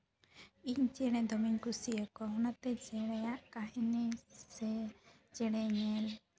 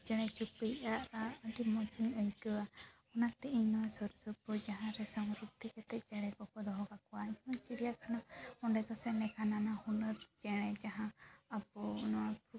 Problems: background sounds at intervals